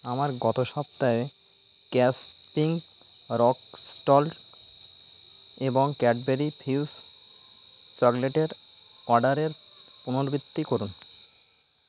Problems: constant background noise